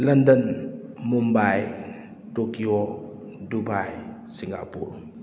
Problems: none marked